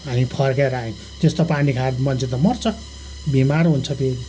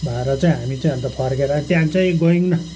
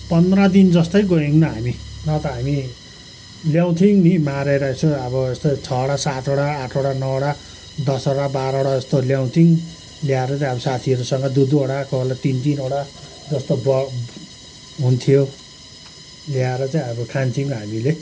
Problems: none marked